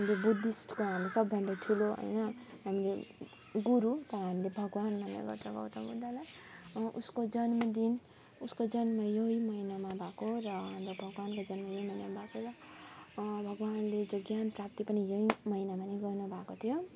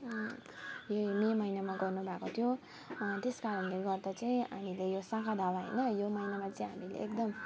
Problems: none marked